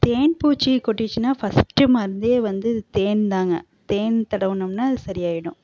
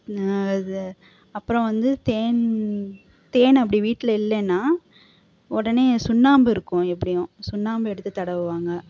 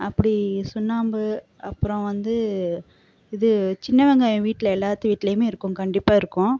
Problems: constant background noise